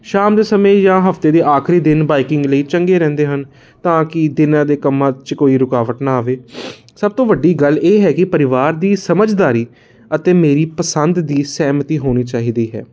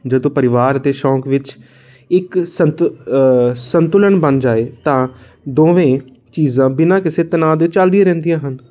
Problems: constant background noise